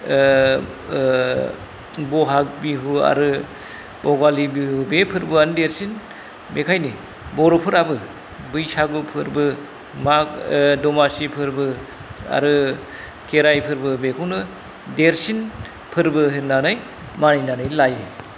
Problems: none marked